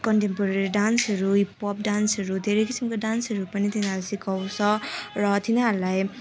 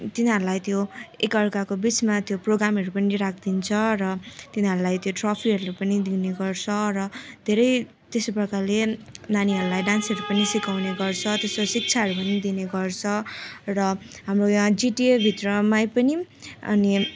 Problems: constant background noise